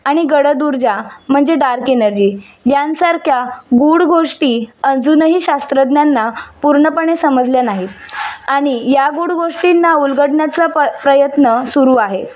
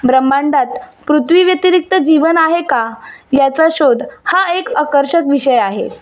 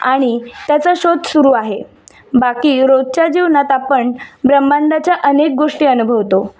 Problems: constant background noise